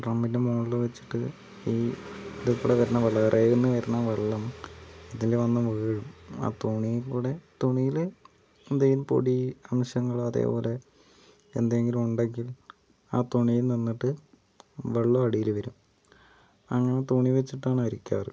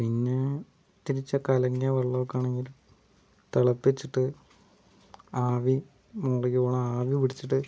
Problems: background sounds at intervals